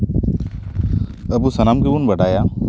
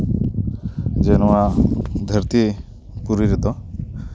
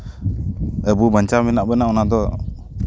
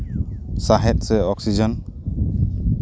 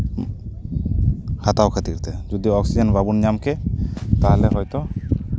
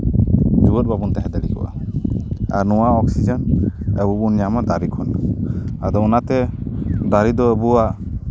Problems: background sounds at intervals